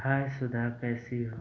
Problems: constant background noise